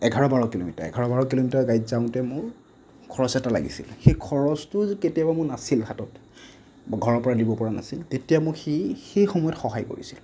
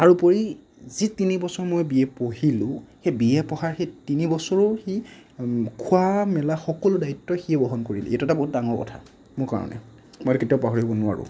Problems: none marked